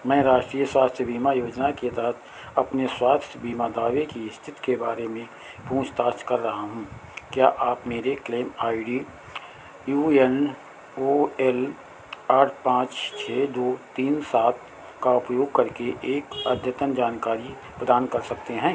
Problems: none marked